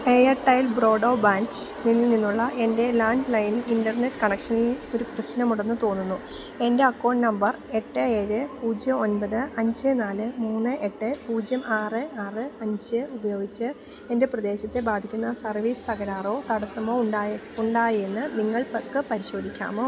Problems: background sounds at intervals